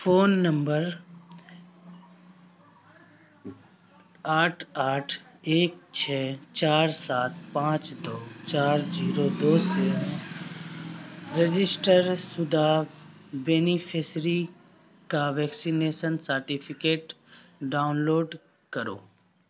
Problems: constant background noise